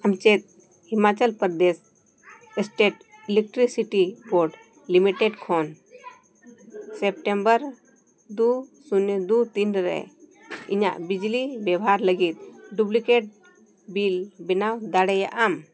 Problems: background conversations at intervals